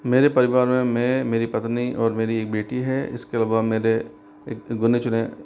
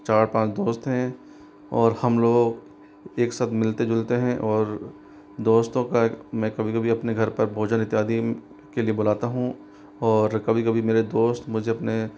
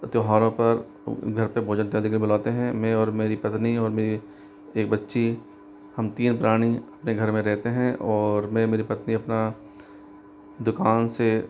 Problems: constant background noise